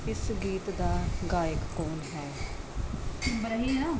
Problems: none marked